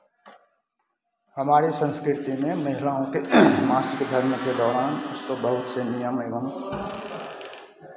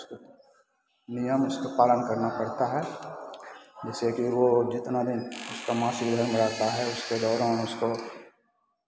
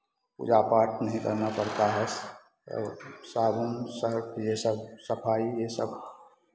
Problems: none marked